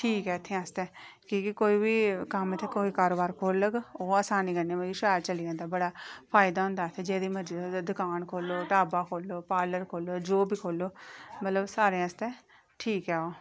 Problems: background sounds at intervals